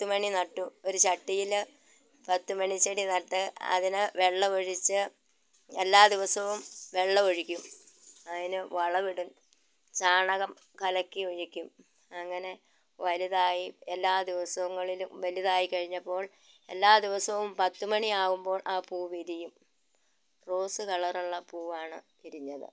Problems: constant background noise